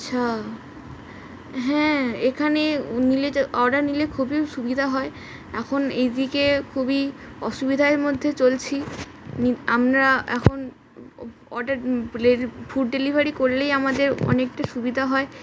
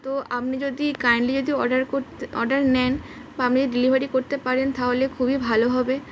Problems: none marked